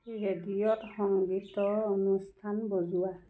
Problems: none marked